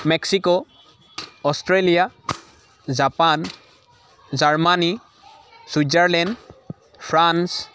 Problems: constant background noise, continuous background conversations